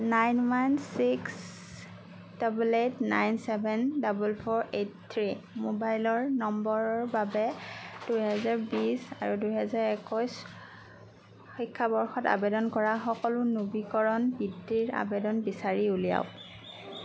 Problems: background sounds at intervals